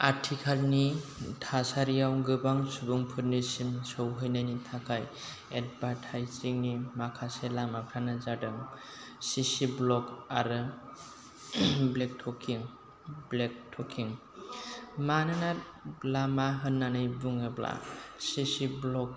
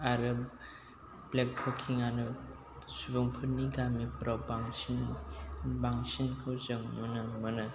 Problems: constant background noise, low volume